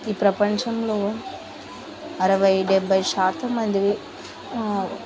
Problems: constant background noise, background conversations at intervals